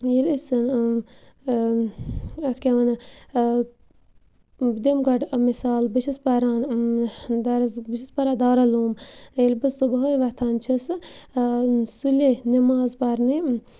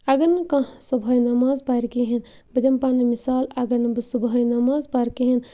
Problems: constant background noise